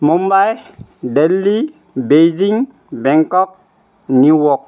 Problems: none marked